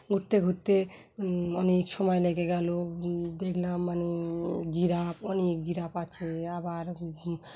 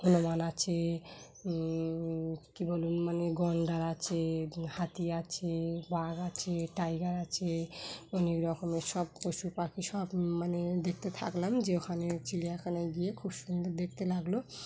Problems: background sounds at intervals